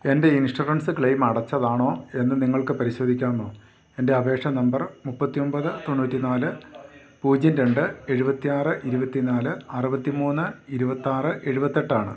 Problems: low volume